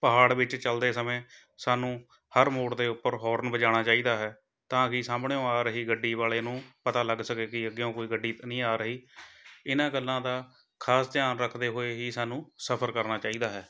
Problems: none marked